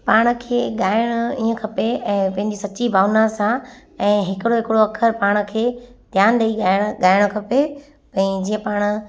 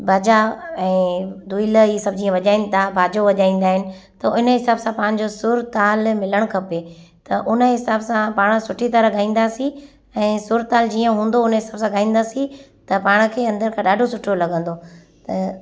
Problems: constant background noise, echo